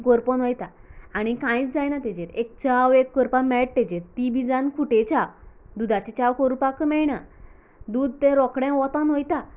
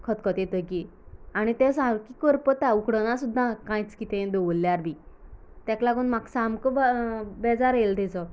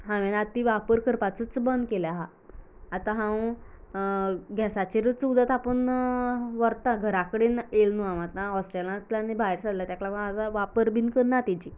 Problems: none marked